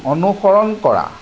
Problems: constant background noise